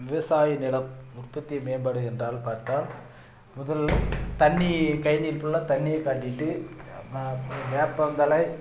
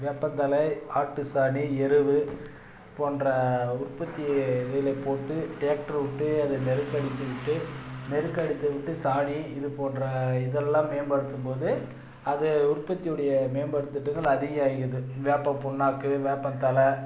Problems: background sounds at intervals